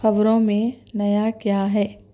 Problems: background sounds at intervals